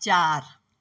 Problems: constant background noise